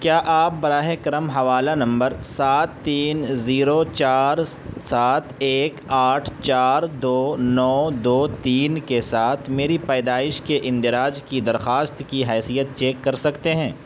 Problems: constant background noise